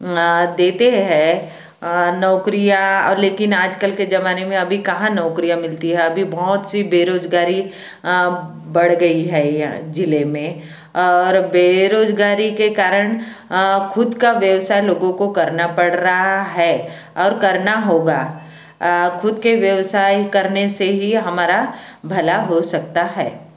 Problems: constant background noise